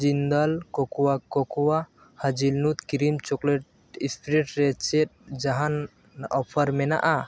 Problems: background sounds at intervals